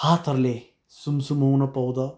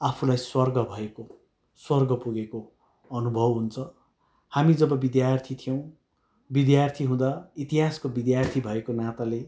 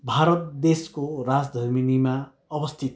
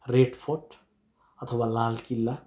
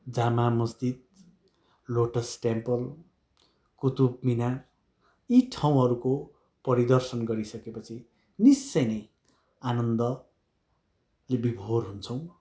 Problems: background sounds at intervals